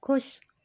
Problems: background sounds at intervals, low volume